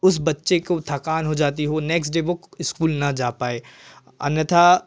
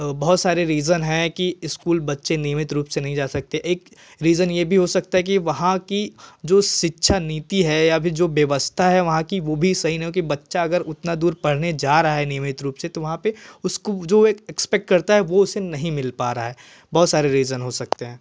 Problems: constant background noise